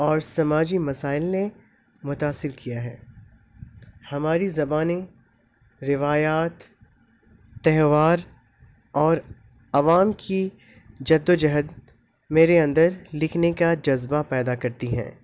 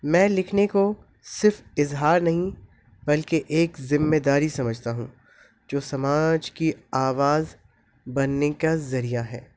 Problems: constant background noise